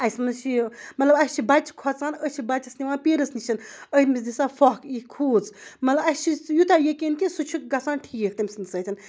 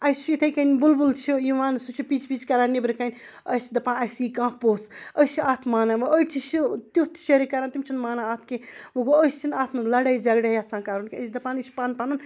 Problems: background sounds at intervals, background conversations at intervals